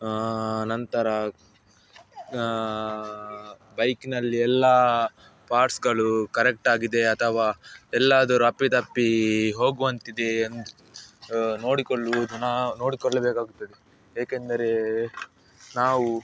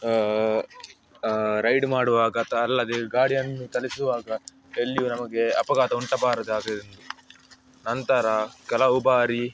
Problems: background sounds at intervals, background conversations at intervals